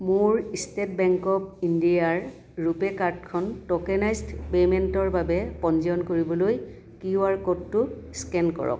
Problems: none marked